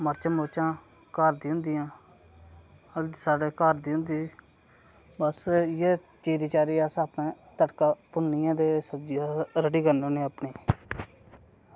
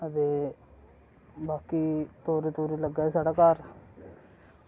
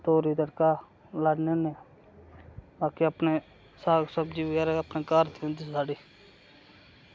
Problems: none marked